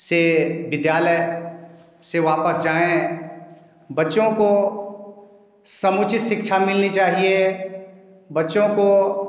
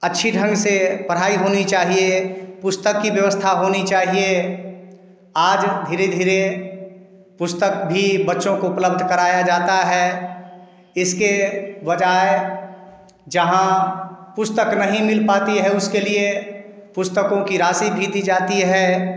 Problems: background sounds at intervals